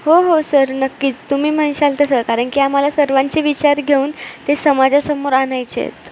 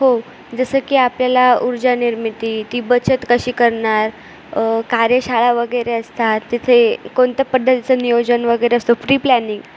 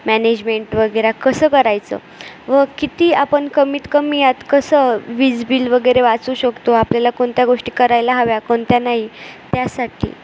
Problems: none marked